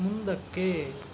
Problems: constant background noise